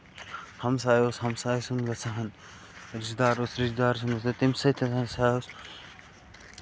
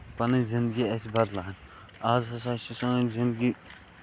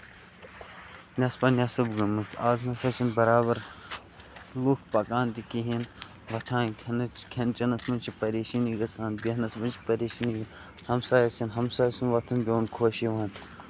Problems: constant background noise, low volume